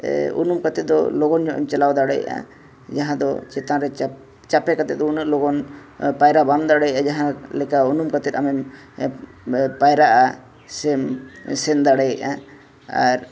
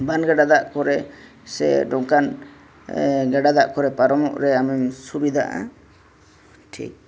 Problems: none marked